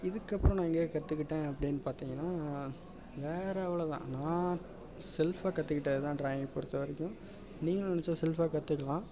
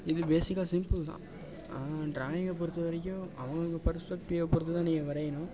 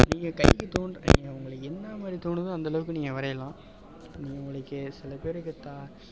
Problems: constant background noise